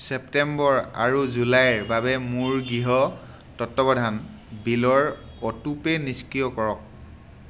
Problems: constant background noise